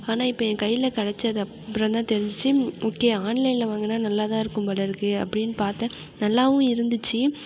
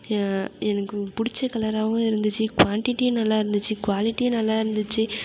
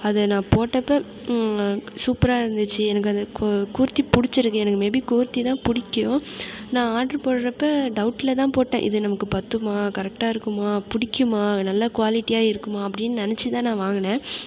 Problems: none marked